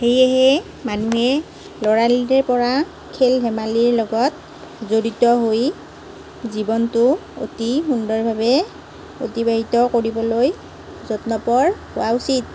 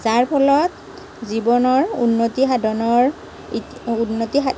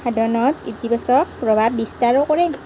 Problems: none marked